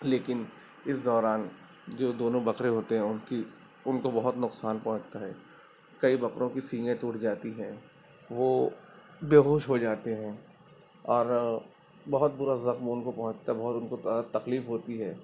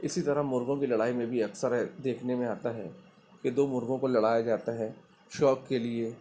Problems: constant background noise